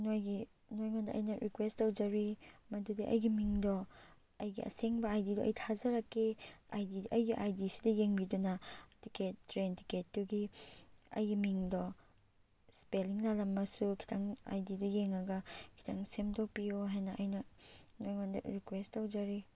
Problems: none marked